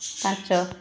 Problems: background sounds at intervals